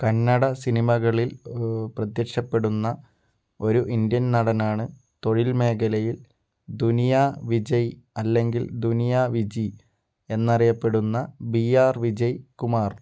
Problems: none marked